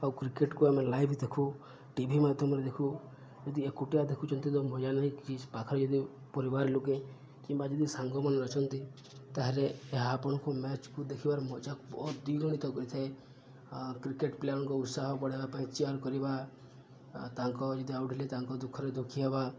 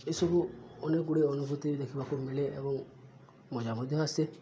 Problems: low volume